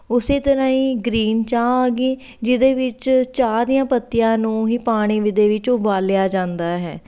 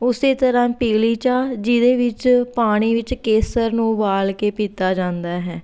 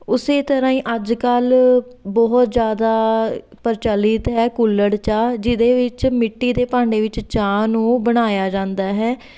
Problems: background sounds at intervals